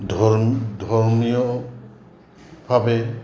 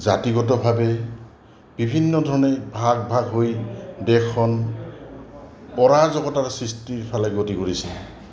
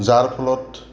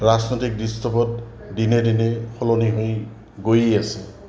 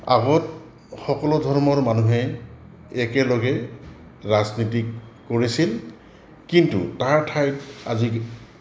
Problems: background sounds at intervals